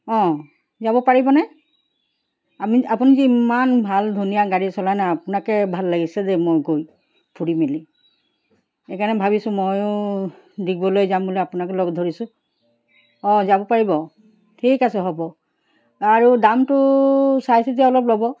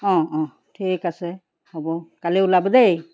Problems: background sounds at intervals